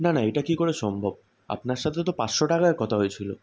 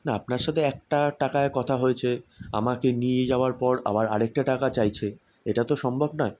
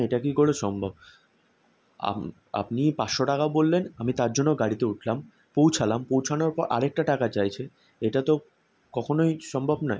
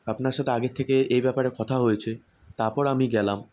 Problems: constant background noise